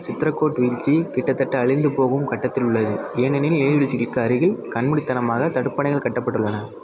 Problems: continuous background conversations